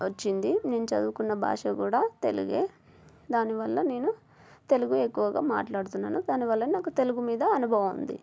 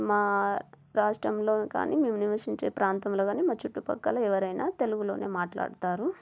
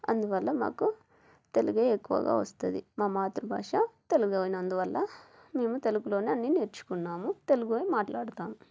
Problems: none marked